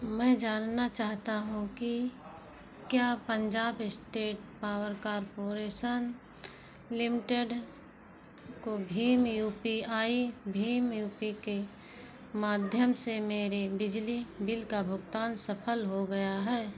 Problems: background sounds at intervals